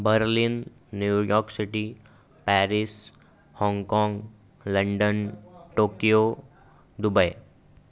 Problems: background sounds at intervals, background conversations at intervals